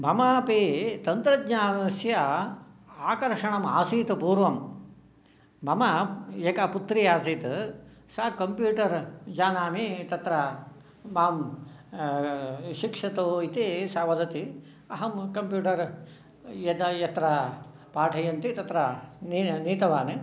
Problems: none marked